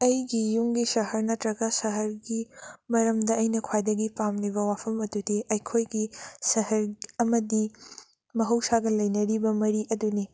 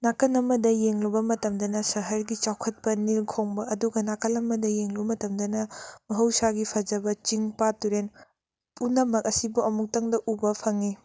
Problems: none marked